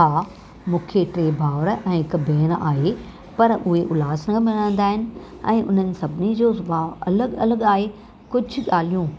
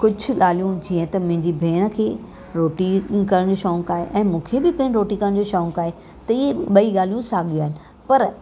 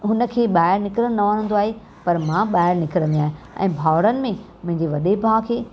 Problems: constant background noise